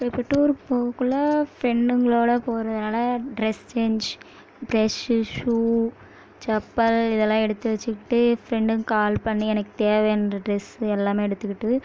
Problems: background sounds at intervals